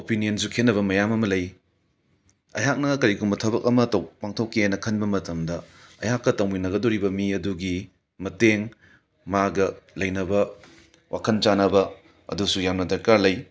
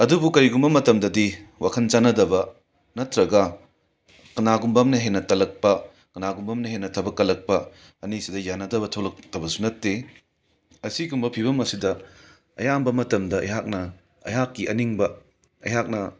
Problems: background sounds at intervals